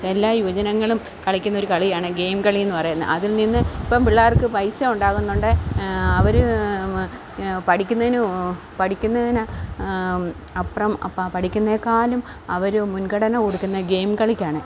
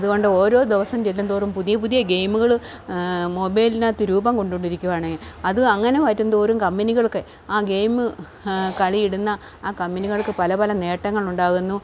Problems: none marked